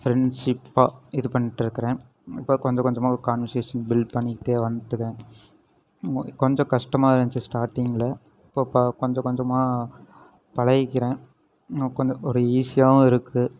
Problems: background sounds at intervals